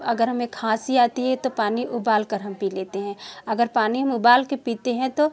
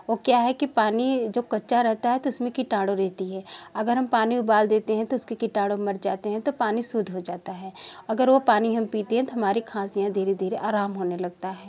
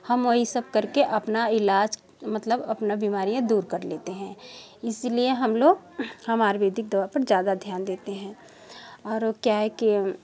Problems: background sounds at intervals